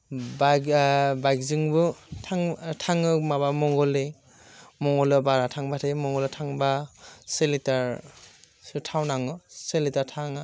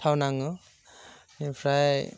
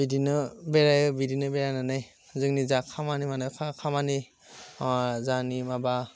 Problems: constant background noise